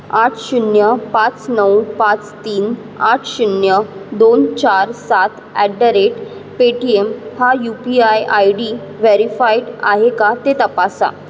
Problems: background sounds at intervals